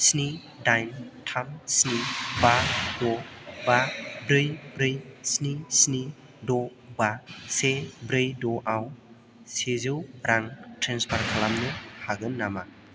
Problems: constant background noise